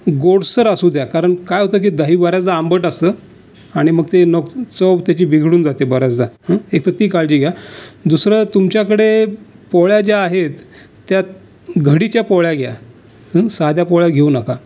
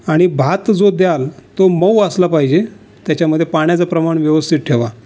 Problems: none marked